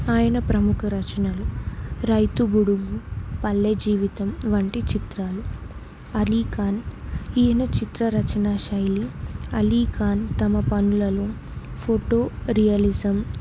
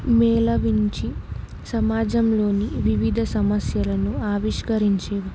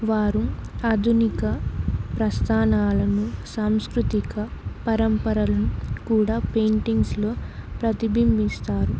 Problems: constant background noise